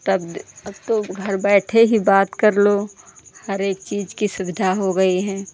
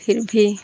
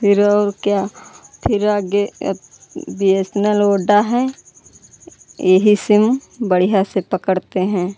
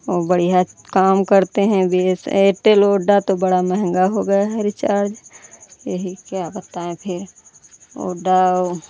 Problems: none marked